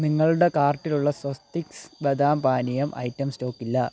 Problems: none marked